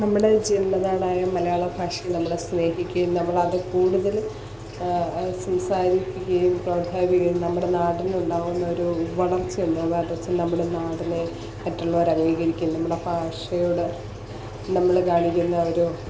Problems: constant background noise, low volume